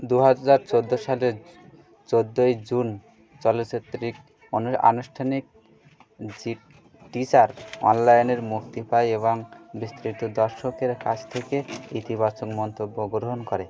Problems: constant background noise, continuous background conversations